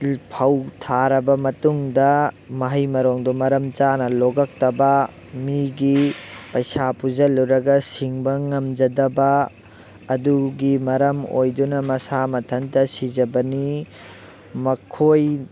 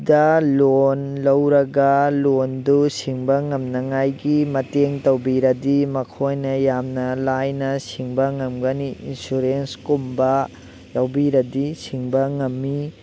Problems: constant background noise